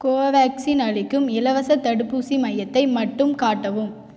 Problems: echo